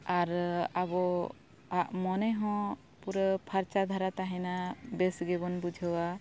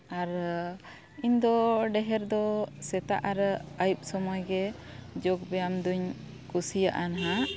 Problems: background sounds at intervals